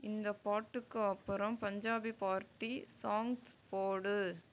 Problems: low volume